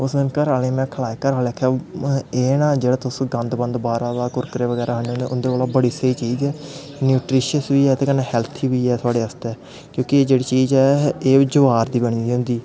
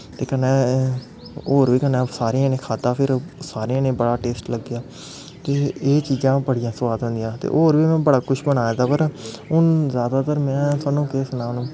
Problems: constant background noise